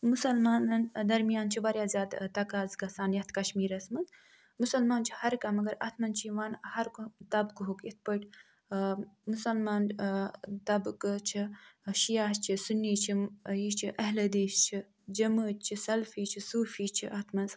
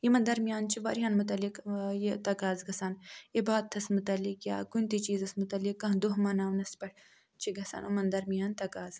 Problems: none marked